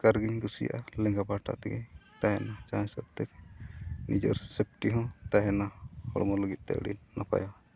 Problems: background sounds at intervals